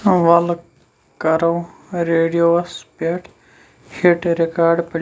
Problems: constant background noise